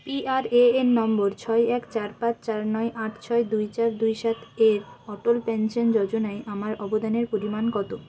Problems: constant background noise, background conversations at intervals